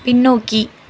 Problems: constant background noise